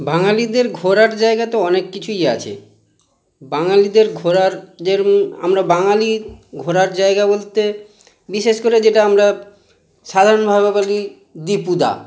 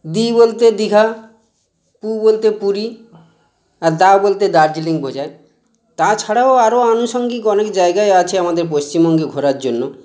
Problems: constant background noise